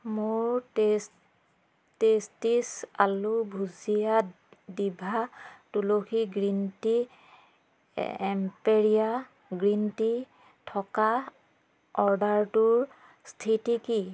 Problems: none marked